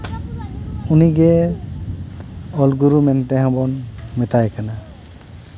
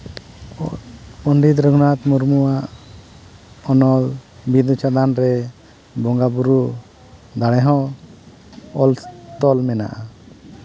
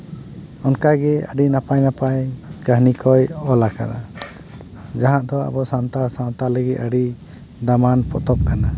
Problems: constant background noise, background conversations at intervals